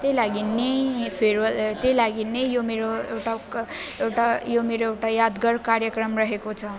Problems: constant background noise